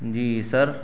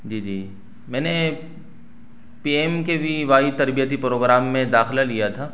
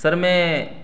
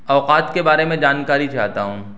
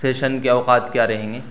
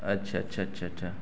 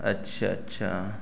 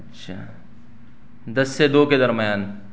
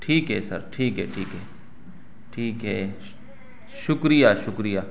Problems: none marked